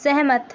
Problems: constant background noise